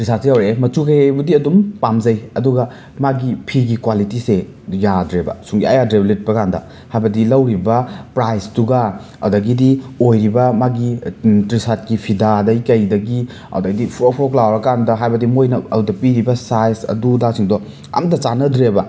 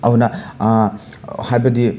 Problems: none marked